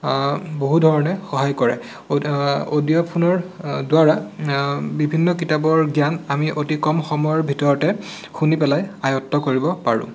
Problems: constant background noise